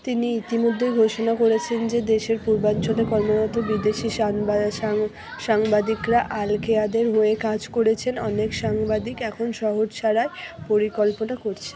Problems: continuous background conversations